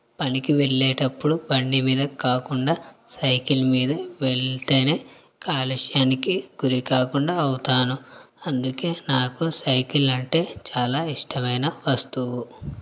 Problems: none marked